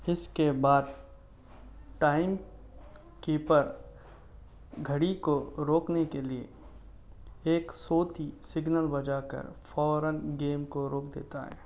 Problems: none marked